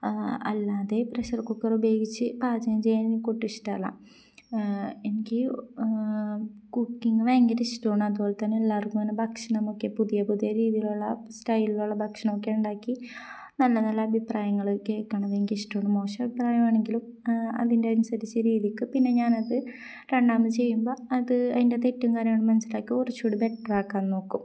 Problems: none marked